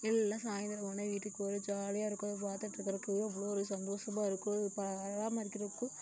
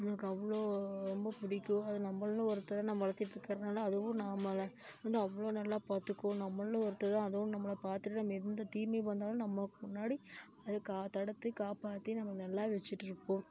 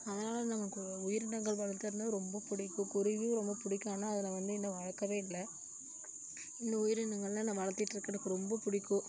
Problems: none marked